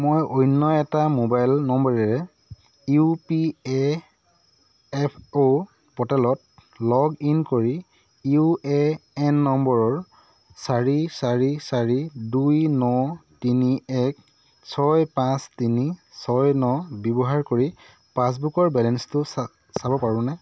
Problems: constant background noise